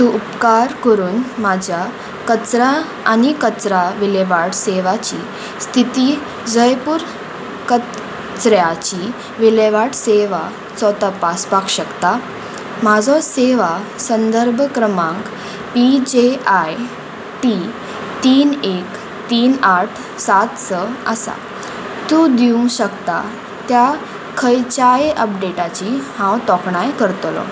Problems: constant background noise